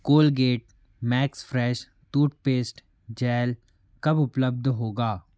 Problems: none marked